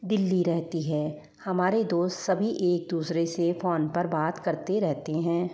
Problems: echo